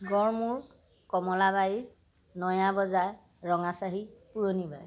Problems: constant background noise